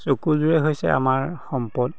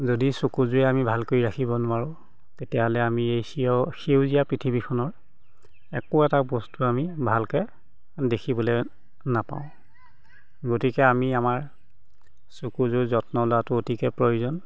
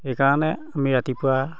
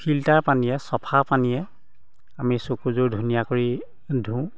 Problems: background sounds at intervals, background conversations at intervals